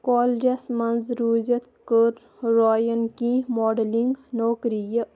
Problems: none marked